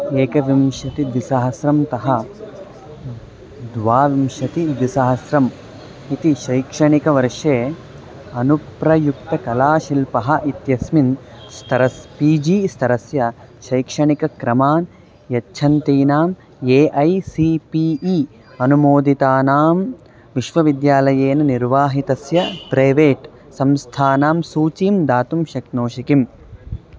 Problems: constant background noise